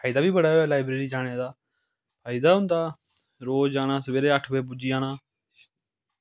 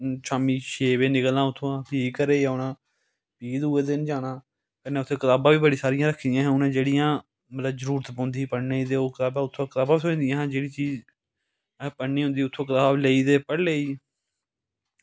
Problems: none marked